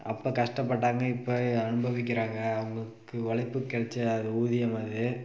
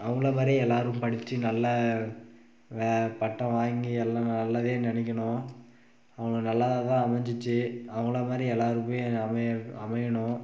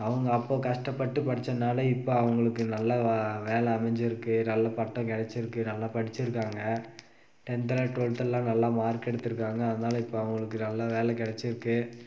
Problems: background sounds at intervals